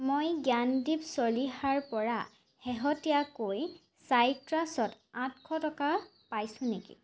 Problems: constant background noise